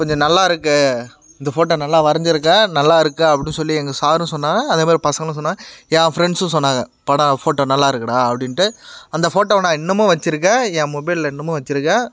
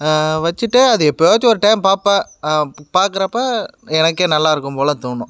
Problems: constant background noise